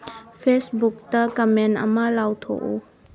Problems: background sounds at intervals